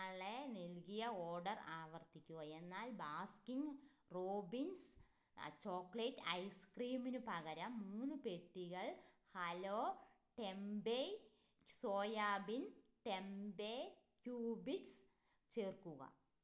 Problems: low volume